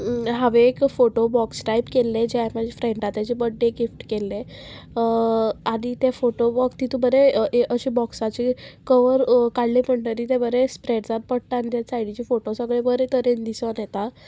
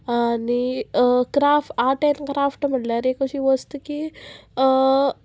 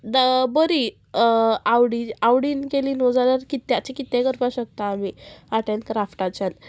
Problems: constant background noise